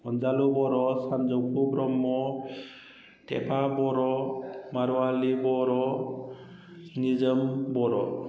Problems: none marked